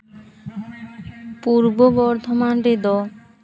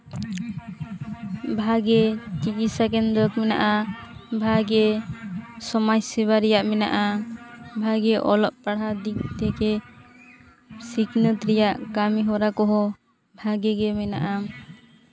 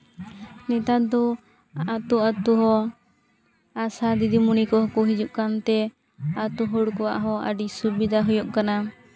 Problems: constant background noise, background conversations at intervals